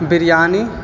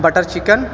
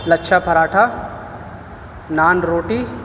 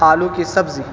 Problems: constant background noise